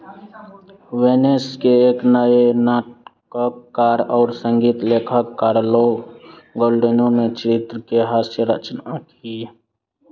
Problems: constant background noise